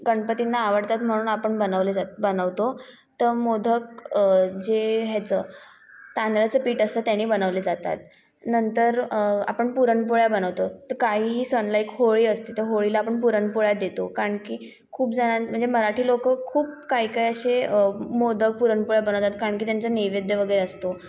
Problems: background sounds at intervals, echo